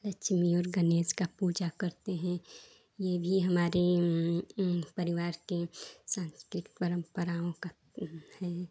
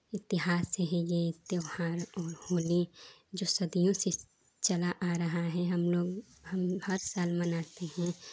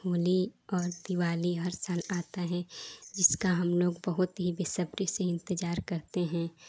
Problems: constant background noise